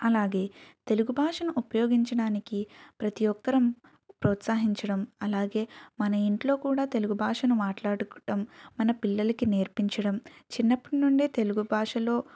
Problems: none marked